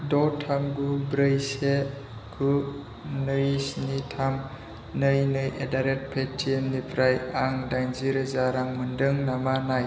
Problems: constant background noise